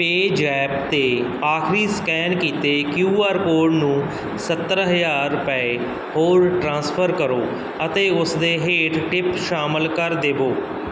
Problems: none marked